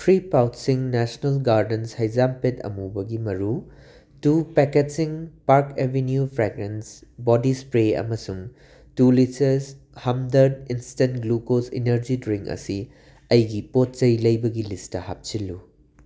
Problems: background sounds at intervals